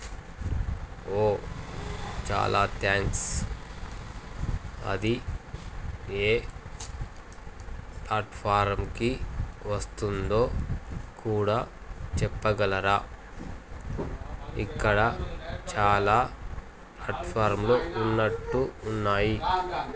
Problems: constant background noise